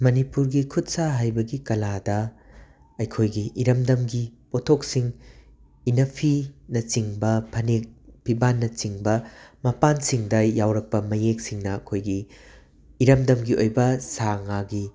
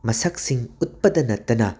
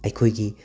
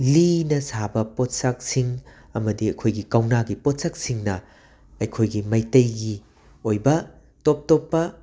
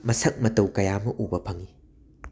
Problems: constant background noise